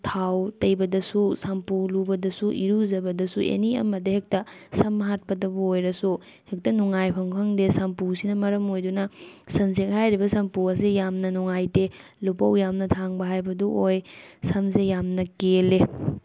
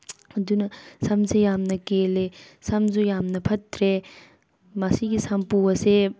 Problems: background sounds at intervals